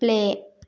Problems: none marked